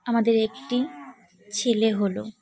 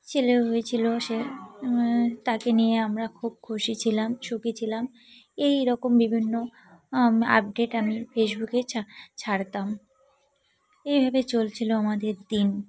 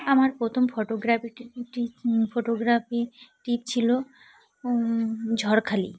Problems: constant background noise, continuous background conversations